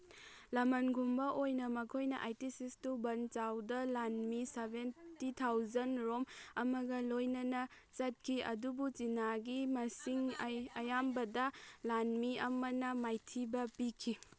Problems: background sounds at intervals